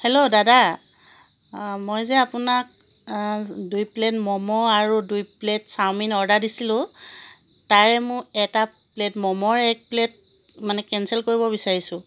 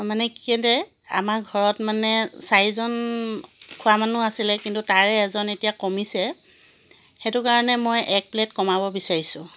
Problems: constant background noise